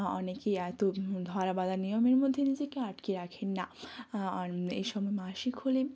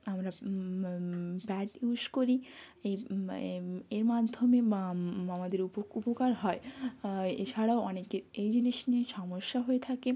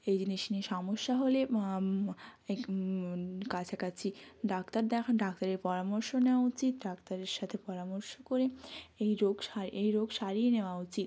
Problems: none marked